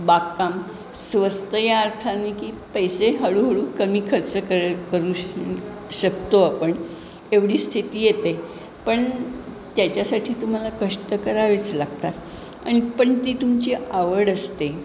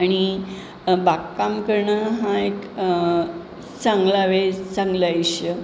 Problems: constant background noise